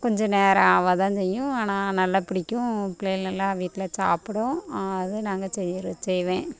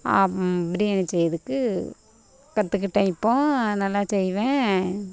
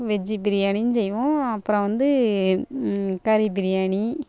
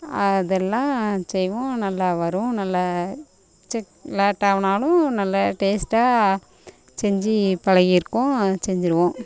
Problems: constant background noise